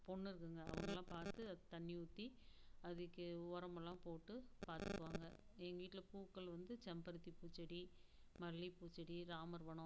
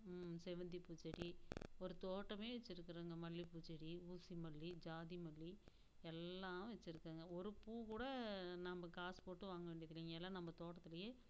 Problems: background sounds at intervals, low volume